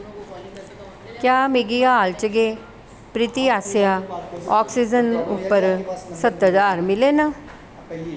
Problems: constant background noise